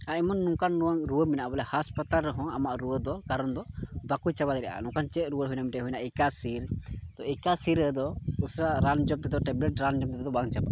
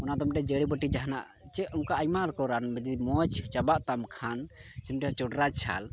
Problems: background sounds at intervals, low volume